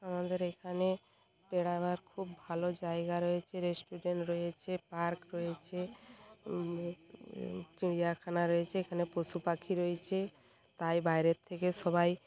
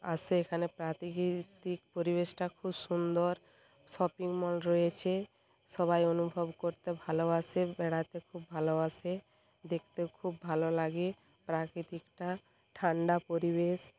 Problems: background sounds at intervals